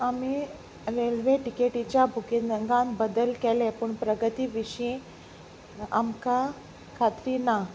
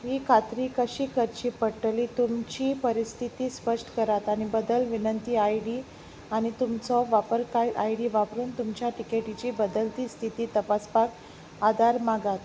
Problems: background sounds at intervals